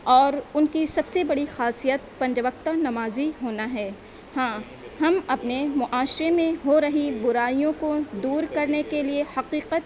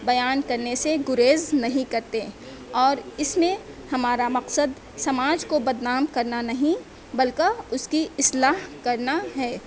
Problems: background sounds at intervals